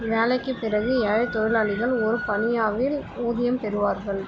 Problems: none marked